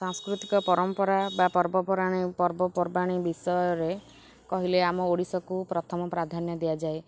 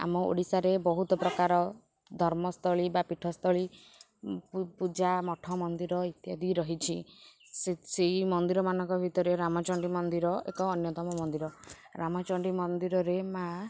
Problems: constant background noise, background conversations at intervals